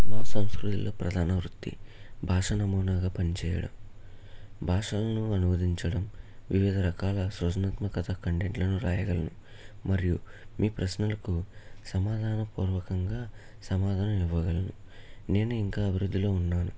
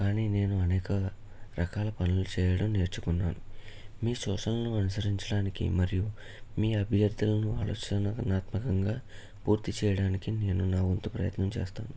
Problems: low volume